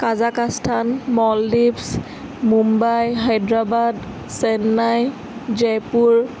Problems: constant background noise